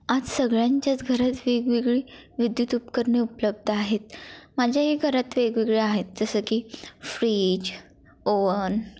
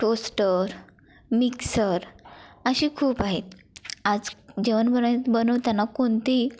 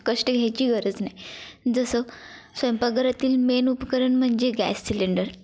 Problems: constant background noise, continuous background conversations